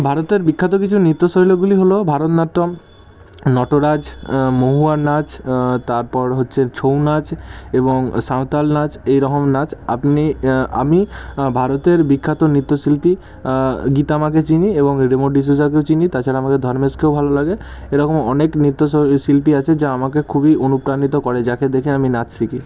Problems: constant background noise